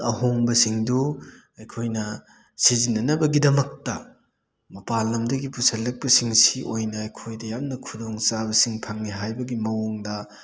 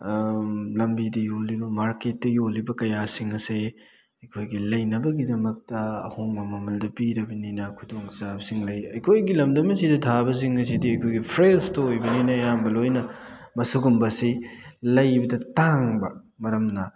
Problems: none marked